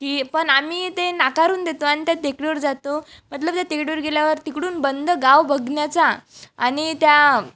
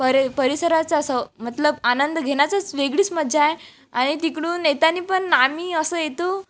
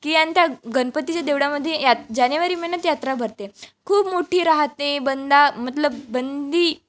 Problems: none marked